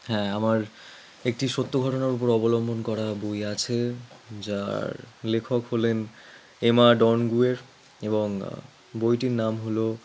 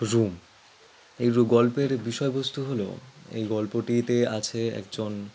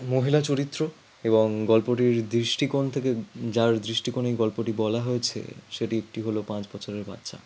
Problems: background sounds at intervals